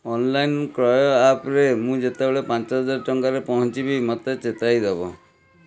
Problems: background conversations at intervals